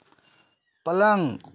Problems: none marked